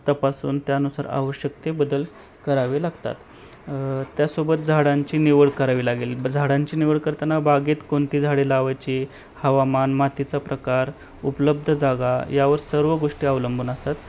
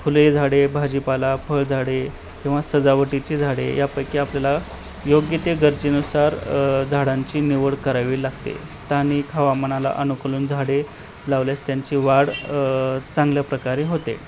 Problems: none marked